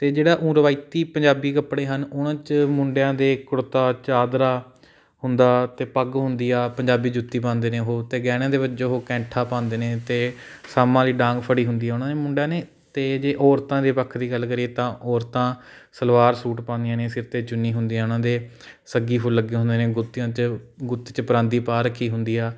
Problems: background sounds at intervals